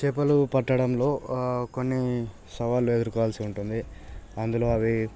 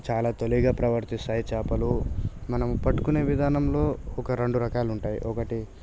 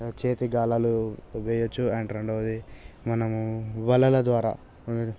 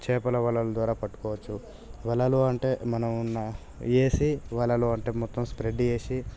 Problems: none marked